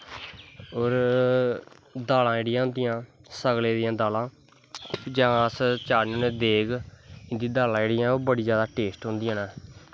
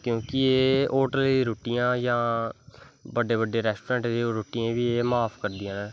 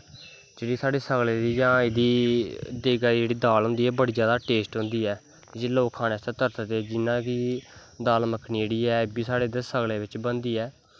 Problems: none marked